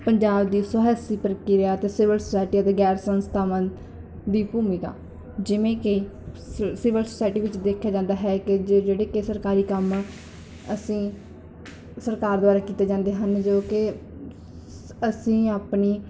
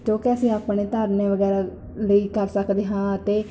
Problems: none marked